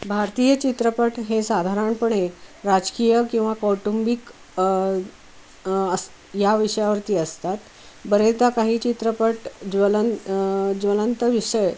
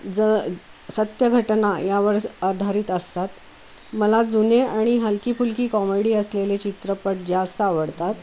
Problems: constant background noise